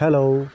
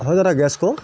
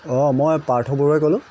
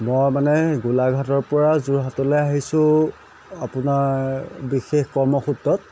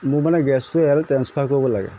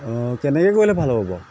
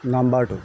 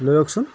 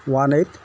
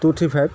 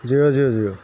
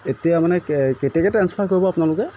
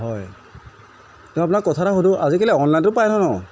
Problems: background sounds at intervals